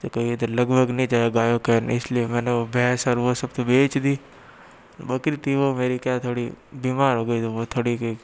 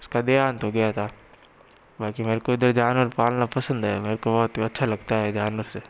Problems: background sounds at intervals